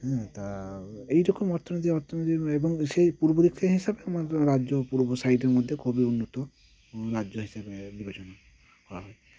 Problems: none marked